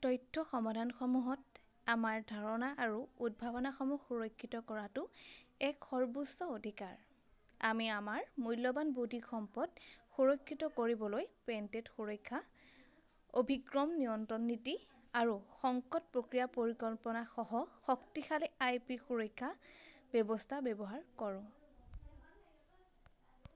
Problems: constant background noise, background conversations at intervals